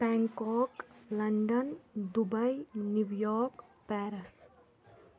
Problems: constant background noise